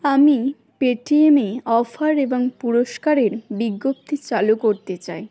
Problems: constant background noise